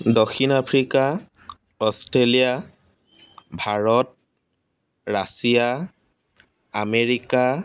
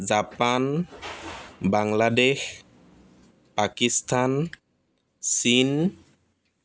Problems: none marked